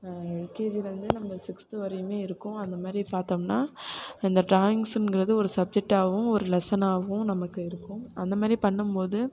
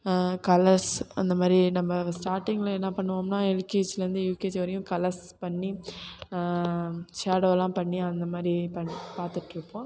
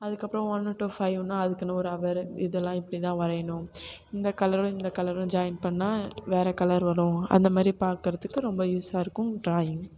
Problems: background sounds at intervals